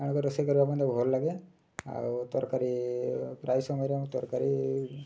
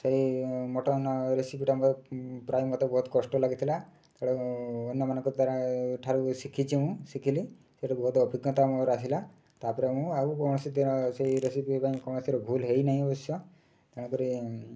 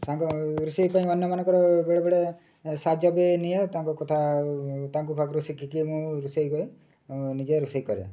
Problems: none marked